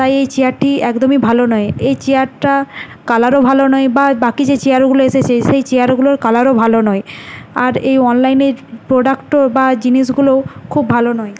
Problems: none marked